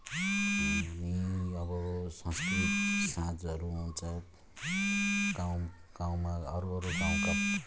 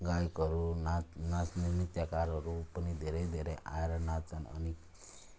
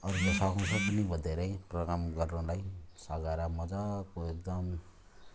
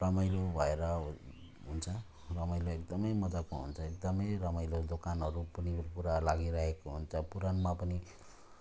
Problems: background sounds at intervals